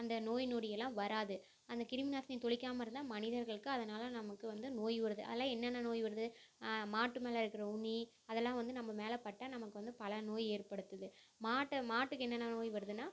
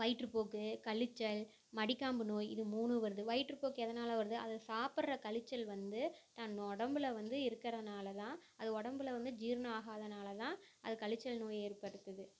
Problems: low volume